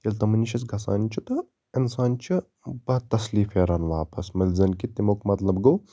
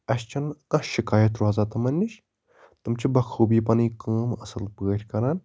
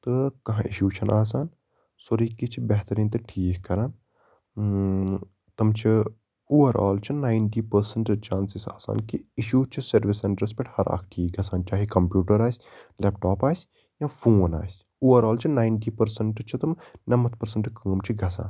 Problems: background sounds at intervals